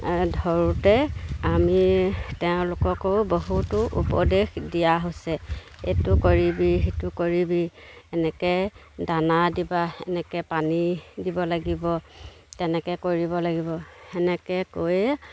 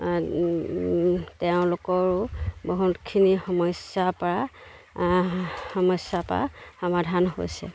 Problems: none marked